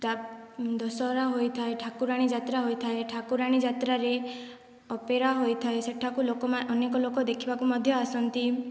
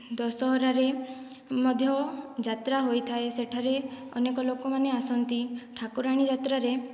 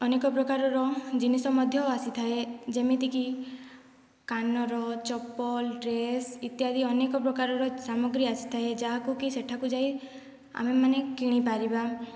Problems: low volume